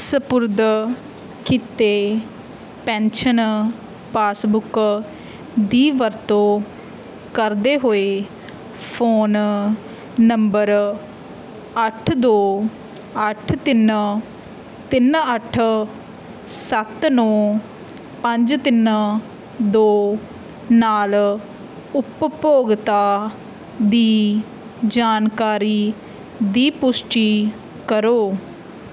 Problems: none marked